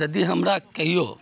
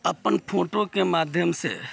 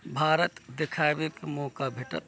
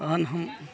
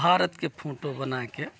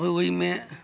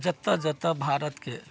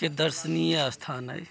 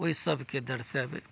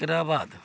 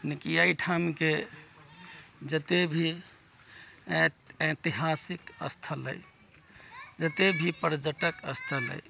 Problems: background sounds at intervals, background conversations at intervals